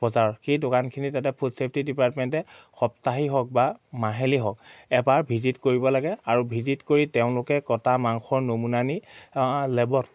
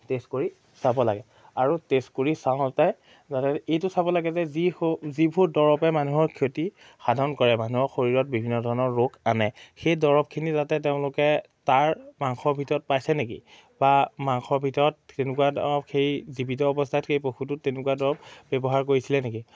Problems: none marked